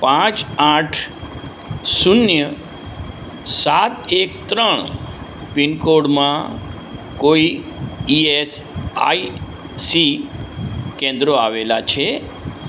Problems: constant background noise